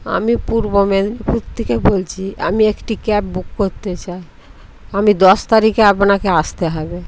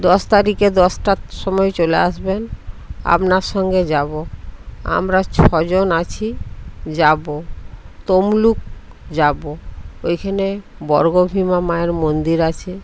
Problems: none marked